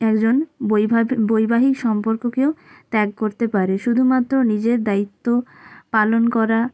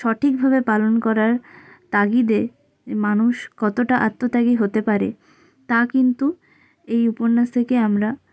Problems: none marked